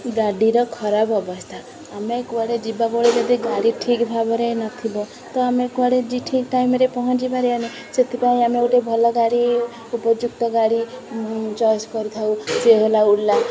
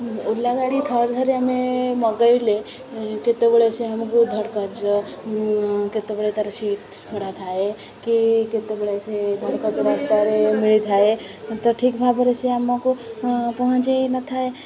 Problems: none marked